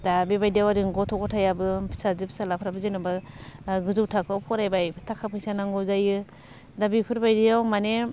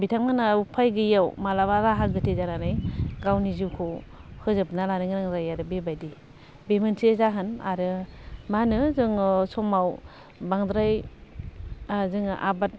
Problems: none marked